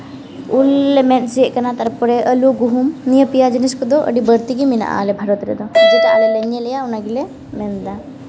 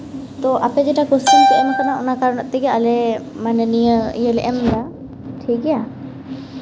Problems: constant background noise, background conversations at intervals